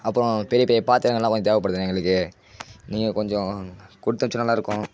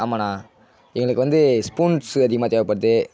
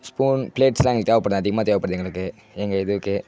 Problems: background sounds at intervals